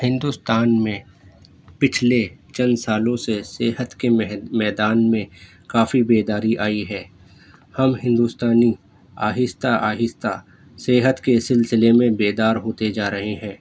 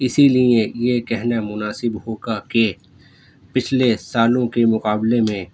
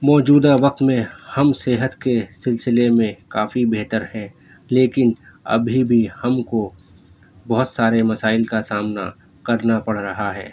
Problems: none marked